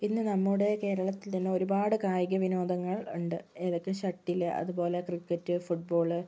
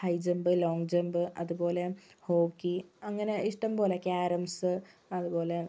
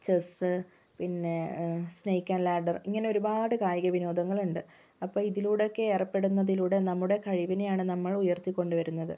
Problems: low volume